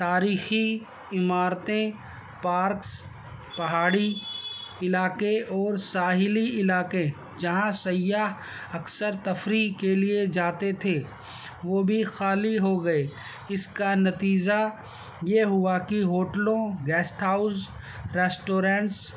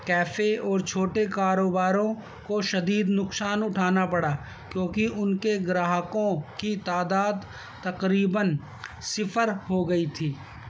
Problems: constant background noise